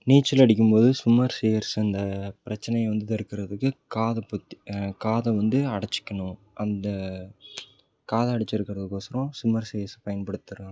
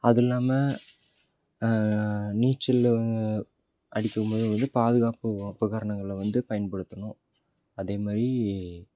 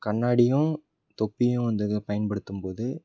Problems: background sounds at intervals